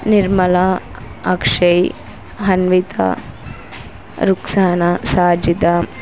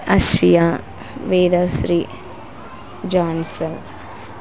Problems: constant background noise